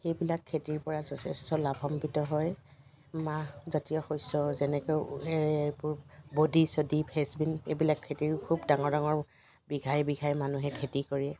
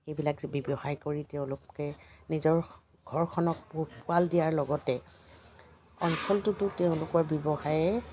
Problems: constant background noise